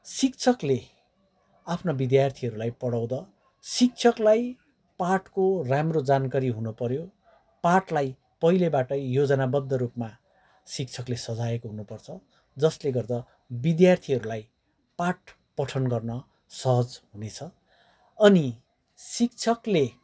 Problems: background sounds at intervals, background conversations at intervals